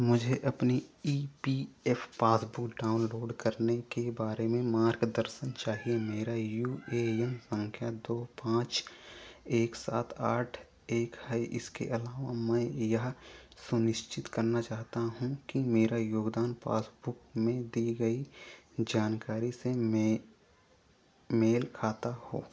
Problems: none marked